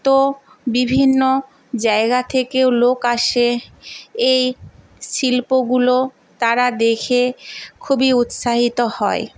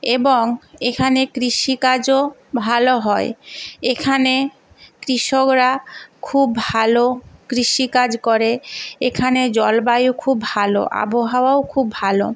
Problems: none marked